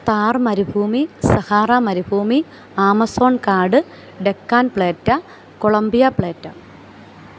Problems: constant background noise